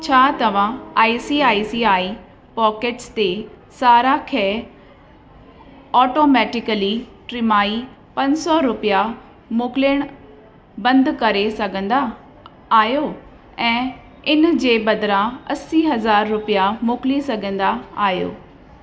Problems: constant background noise, echo